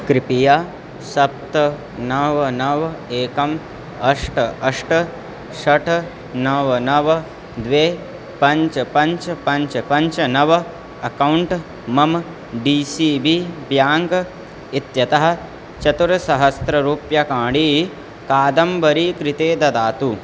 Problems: constant background noise